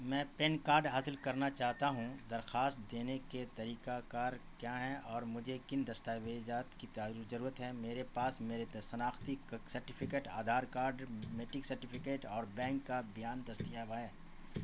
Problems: constant background noise